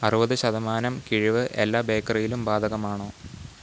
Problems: constant background noise